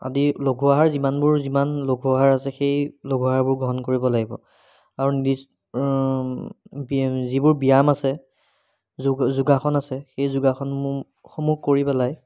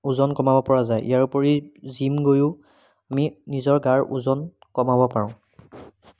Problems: background sounds at intervals